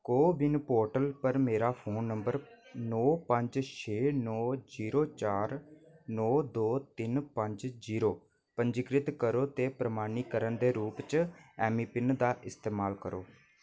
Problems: low volume